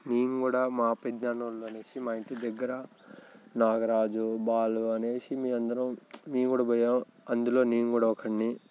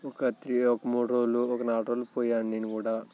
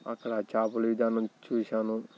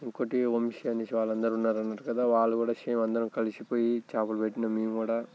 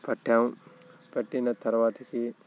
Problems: background sounds at intervals, continuous background conversations